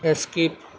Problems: constant background noise